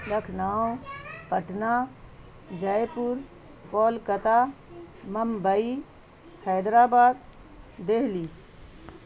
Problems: constant background noise